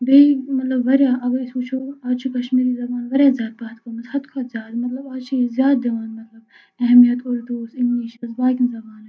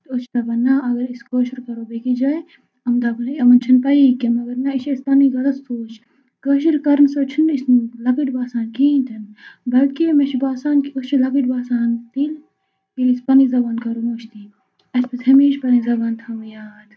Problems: constant background noise, low volume